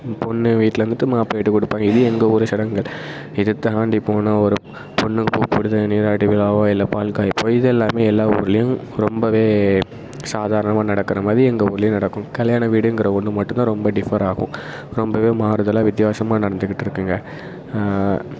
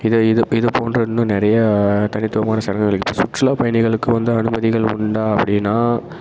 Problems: constant background noise